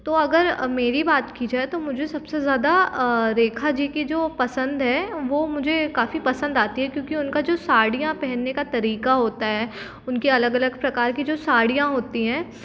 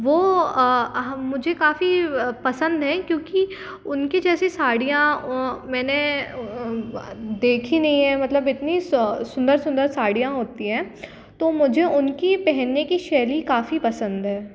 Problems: constant background noise